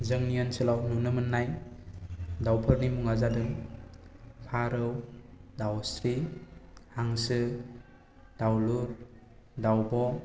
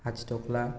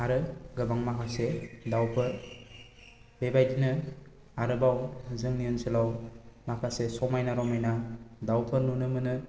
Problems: low volume